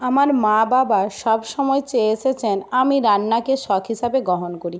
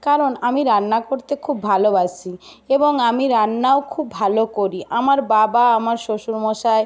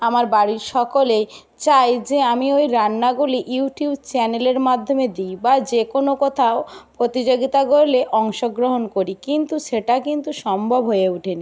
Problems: none marked